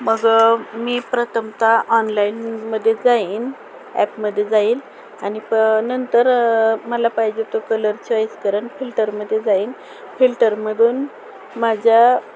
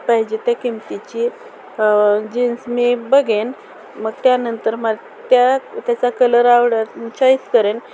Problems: constant background noise, background conversations at intervals